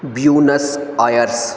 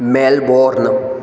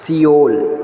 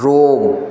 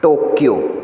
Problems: background sounds at intervals